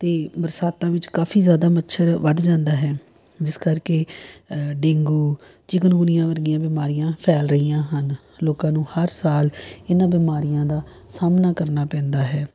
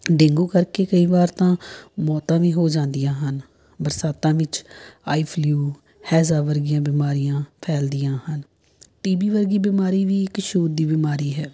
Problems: none marked